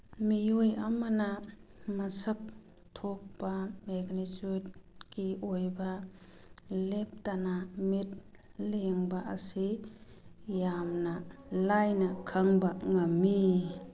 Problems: background sounds at intervals